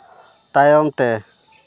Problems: constant background noise